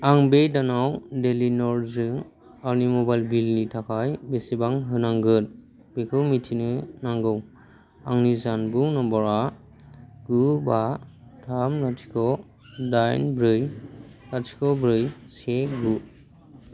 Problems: constant background noise